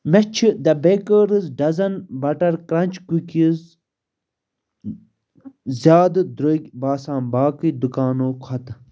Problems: none marked